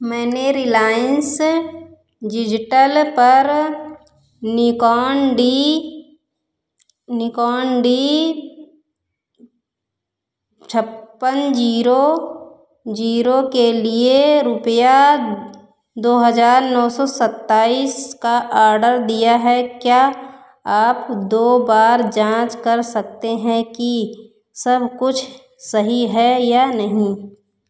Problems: none marked